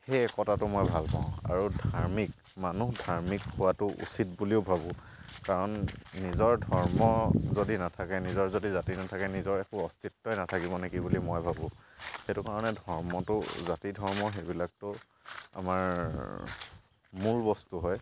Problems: constant background noise